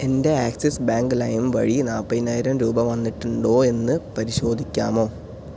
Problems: none marked